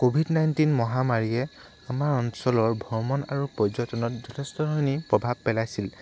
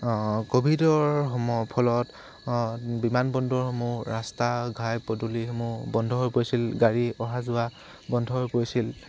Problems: constant background noise